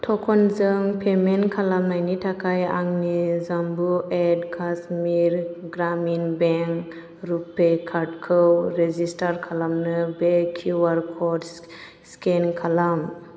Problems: constant background noise